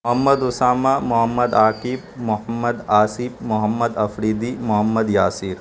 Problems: constant background noise